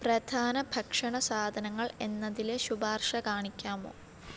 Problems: none marked